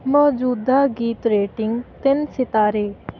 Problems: none marked